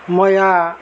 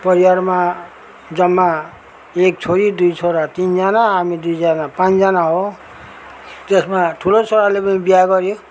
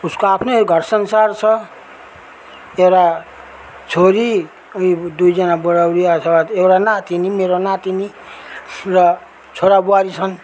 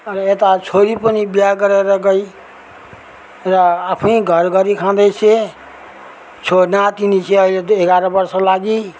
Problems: background sounds at intervals